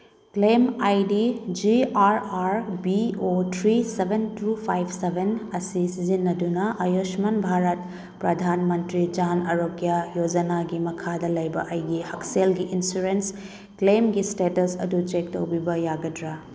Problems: background sounds at intervals